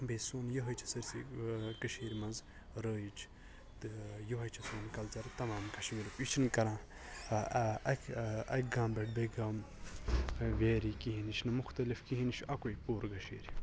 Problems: constant background noise, background conversations at intervals, low volume